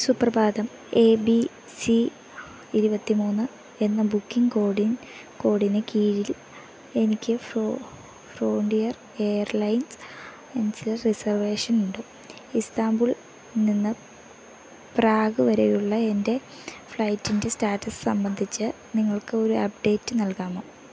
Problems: background sounds at intervals